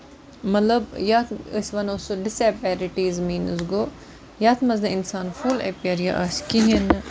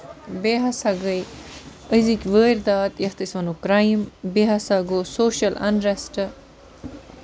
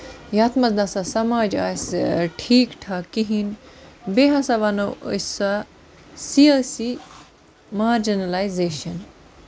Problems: constant background noise